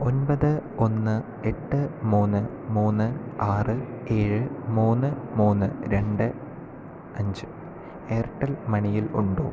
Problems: none marked